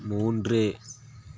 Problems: constant background noise